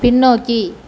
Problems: none marked